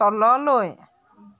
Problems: background sounds at intervals